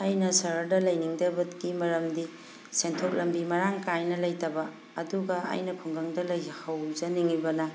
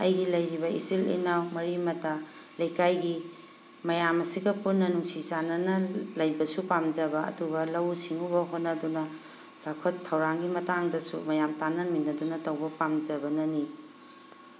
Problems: constant background noise